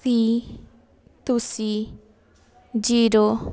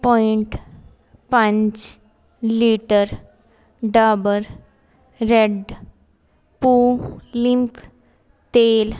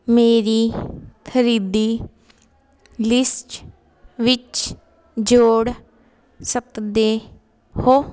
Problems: constant background noise